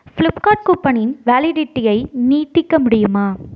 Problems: none marked